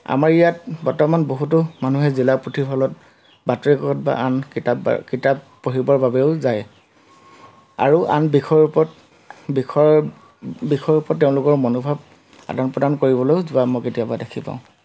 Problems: constant background noise